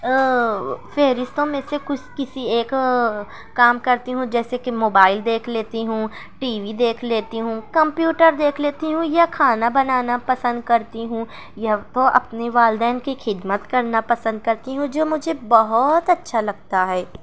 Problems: none marked